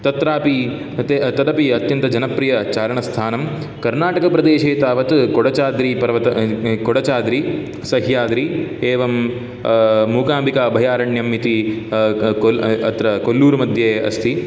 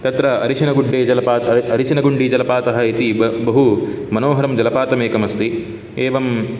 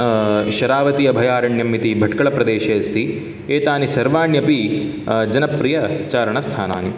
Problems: none marked